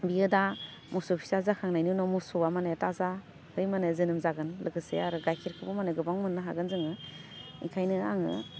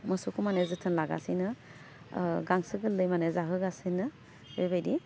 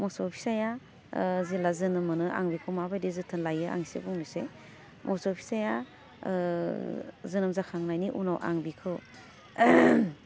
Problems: none marked